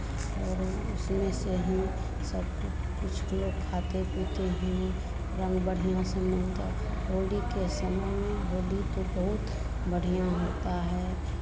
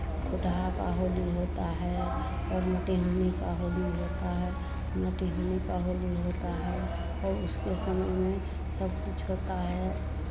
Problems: constant background noise, continuous background conversations